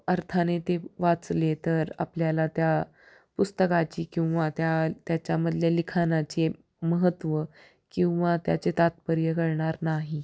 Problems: background sounds at intervals